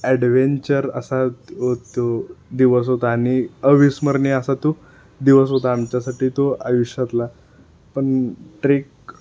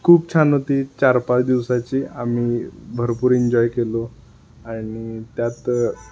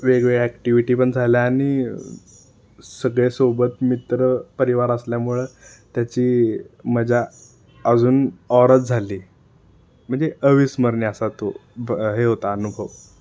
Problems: constant background noise